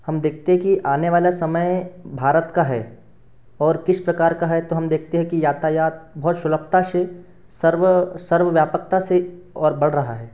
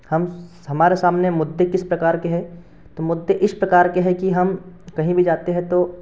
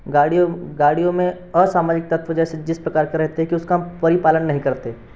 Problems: none marked